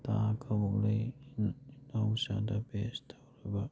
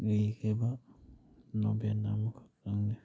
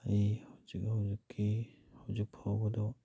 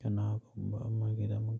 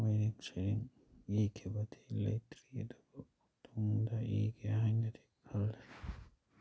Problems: none marked